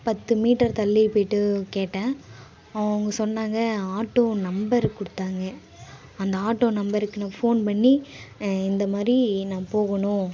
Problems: background sounds at intervals, background conversations at intervals